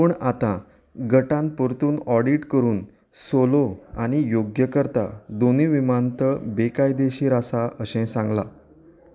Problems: none marked